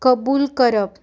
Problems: background sounds at intervals